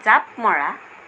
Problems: constant background noise